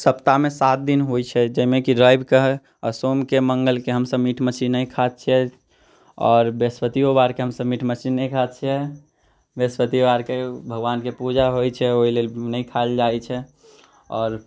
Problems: none marked